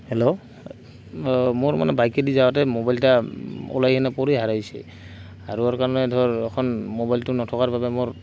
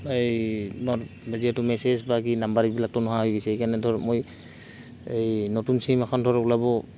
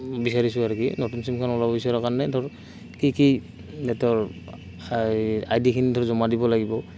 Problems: constant background noise